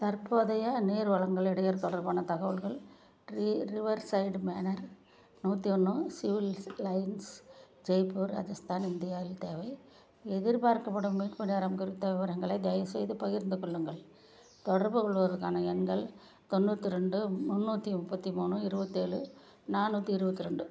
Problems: low volume